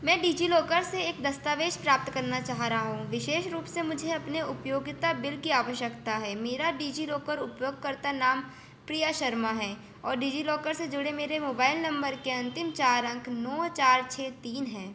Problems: none marked